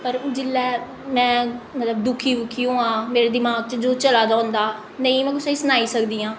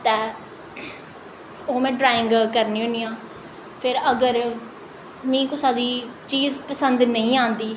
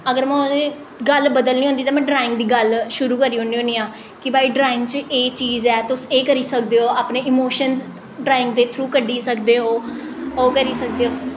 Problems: echo